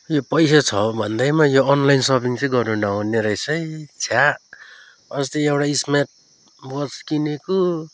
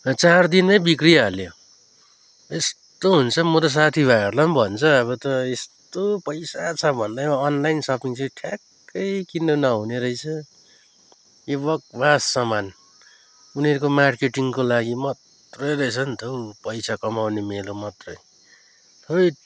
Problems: background sounds at intervals